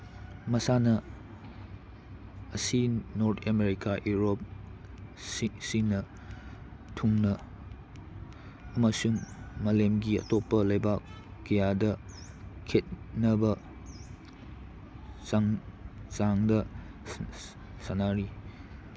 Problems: constant background noise